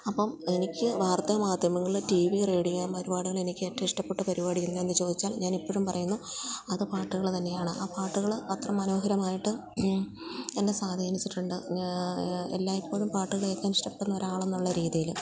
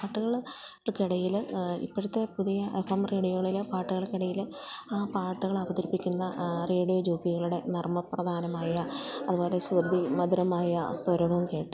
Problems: none marked